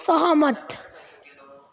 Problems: continuous background conversations